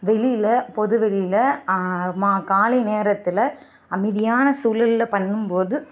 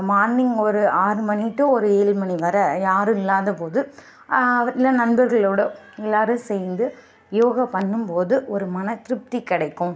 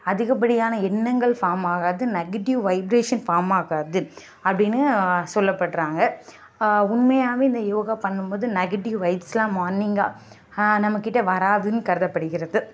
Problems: background sounds at intervals